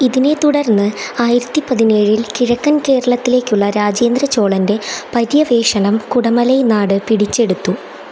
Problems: constant background noise